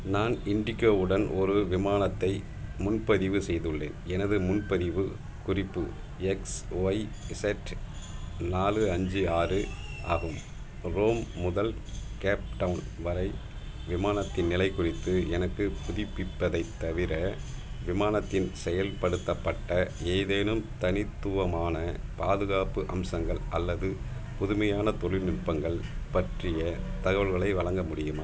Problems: background sounds at intervals